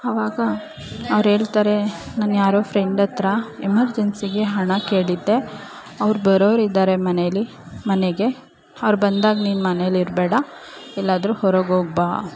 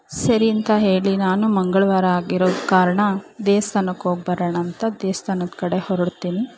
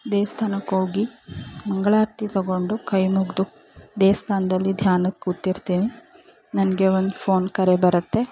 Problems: background sounds at intervals, background conversations at intervals